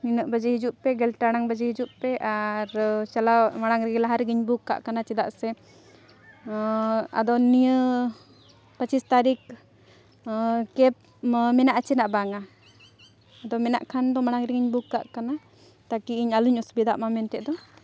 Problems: none marked